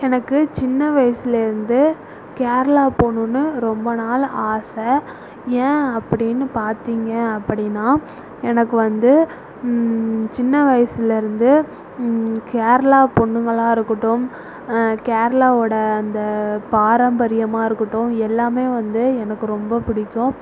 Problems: none marked